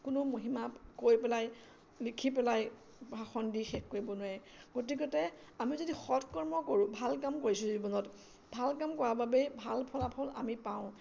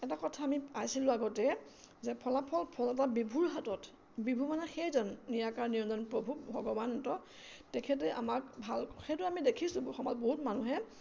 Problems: constant background noise